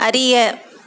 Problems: constant background noise